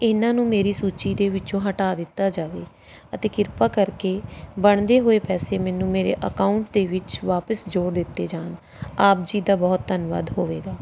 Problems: background sounds at intervals